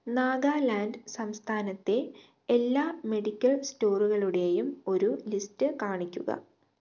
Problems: low volume